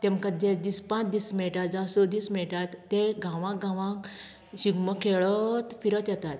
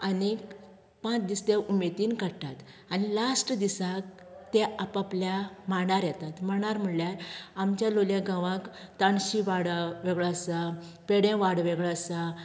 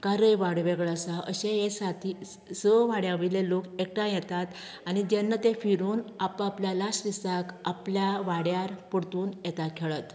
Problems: none marked